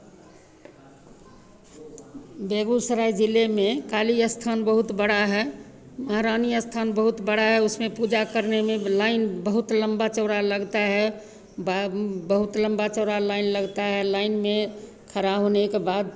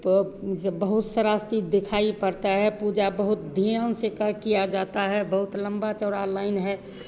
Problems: constant background noise, echo